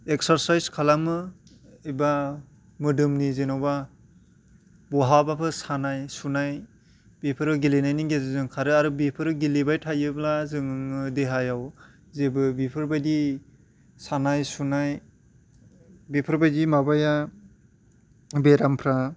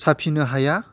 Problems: none marked